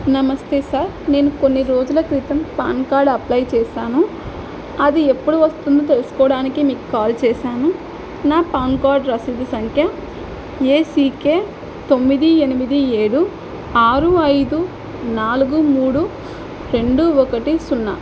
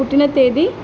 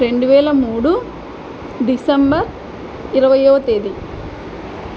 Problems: none marked